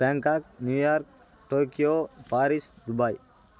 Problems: constant background noise